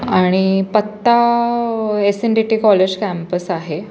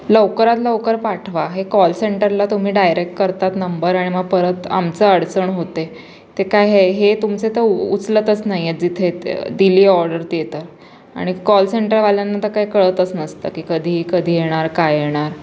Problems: constant background noise, background conversations at intervals